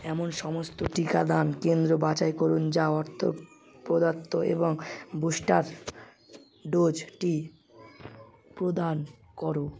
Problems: continuous background conversations